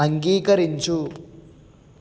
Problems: none marked